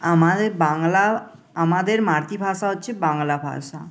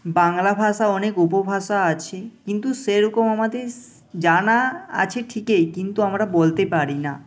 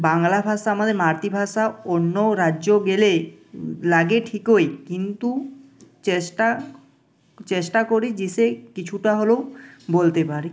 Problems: none marked